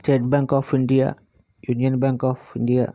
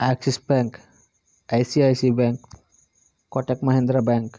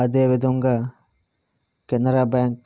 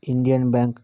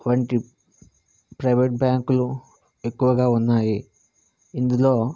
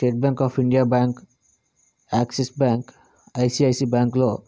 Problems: constant background noise